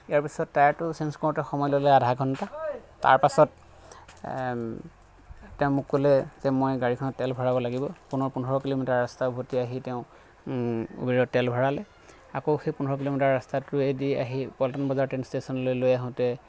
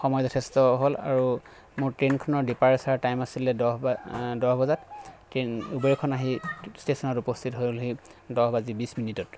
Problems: constant background noise